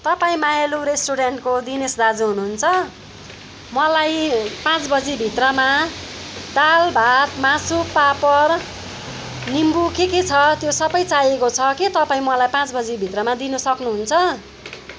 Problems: background conversations at intervals